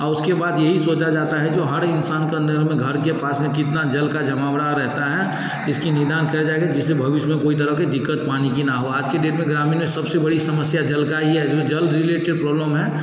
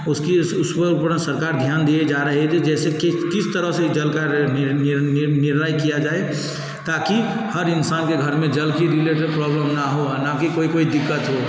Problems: background sounds at intervals